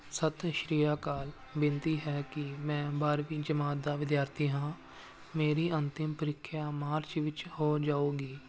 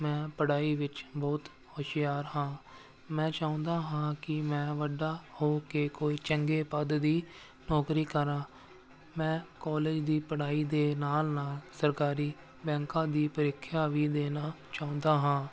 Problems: none marked